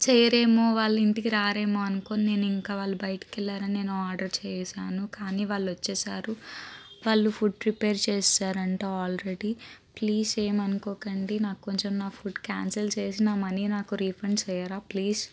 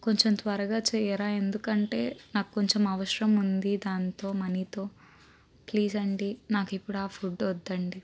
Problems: constant background noise